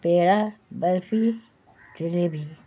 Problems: constant background noise